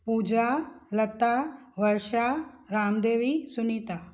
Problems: none marked